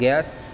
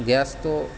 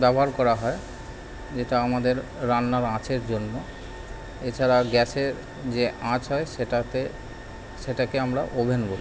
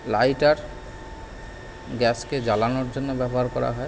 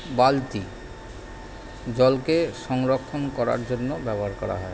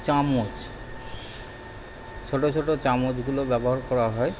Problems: constant background noise, continuous background conversations